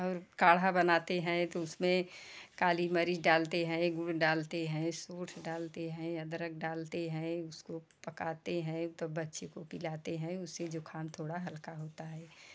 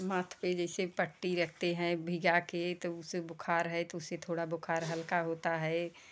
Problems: constant background noise, background conversations at intervals